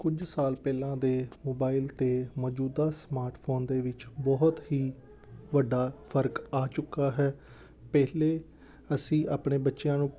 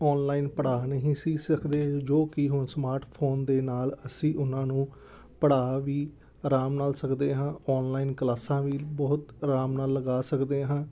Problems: background sounds at intervals